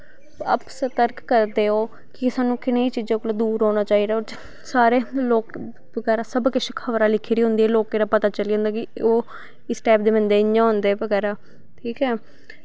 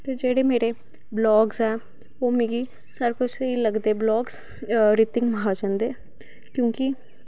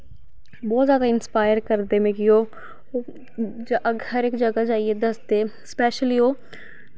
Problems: none marked